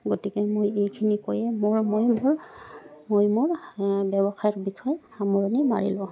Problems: background sounds at intervals